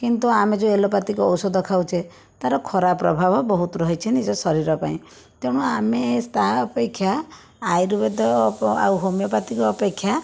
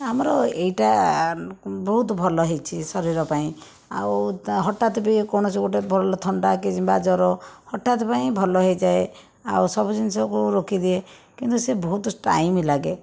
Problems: background sounds at intervals